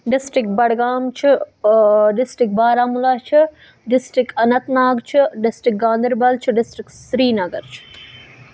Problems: background sounds at intervals